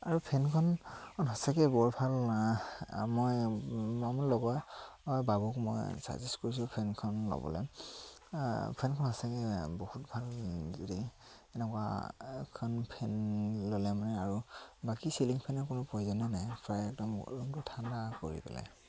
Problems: none marked